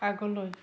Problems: background conversations at intervals